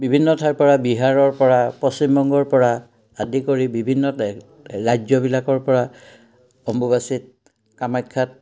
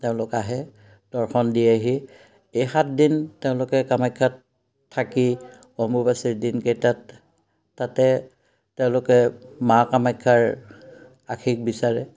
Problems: none marked